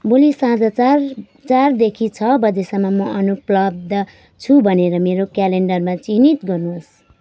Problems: constant background noise